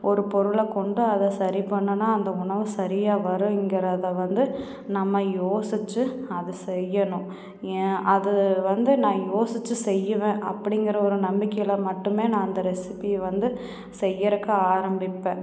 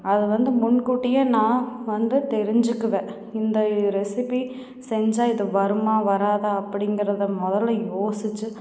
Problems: background conversations at intervals